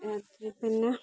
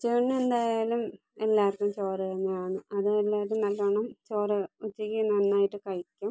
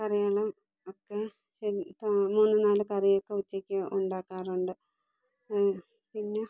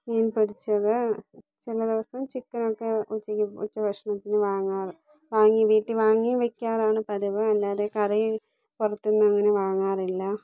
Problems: low volume